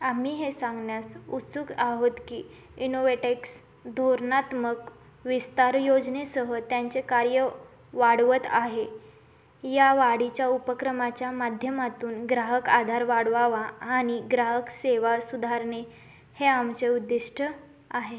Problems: none marked